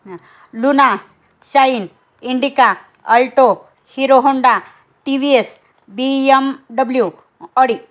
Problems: none marked